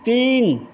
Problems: none marked